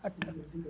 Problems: constant background noise, low volume